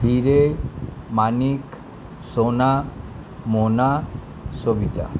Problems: constant background noise